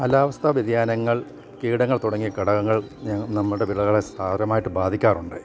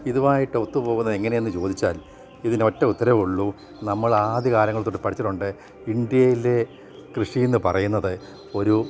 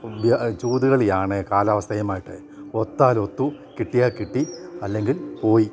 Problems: background sounds at intervals